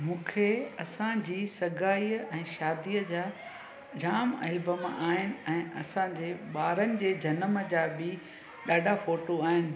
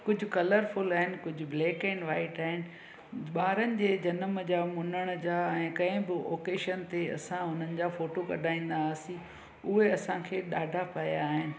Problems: constant background noise